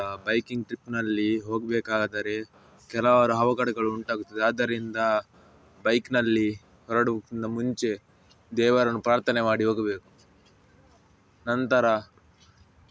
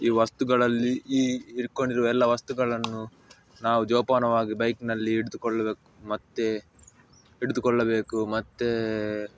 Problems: none marked